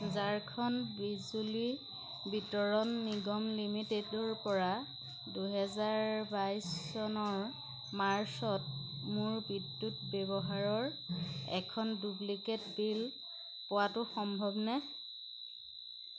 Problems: constant background noise